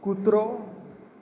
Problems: none marked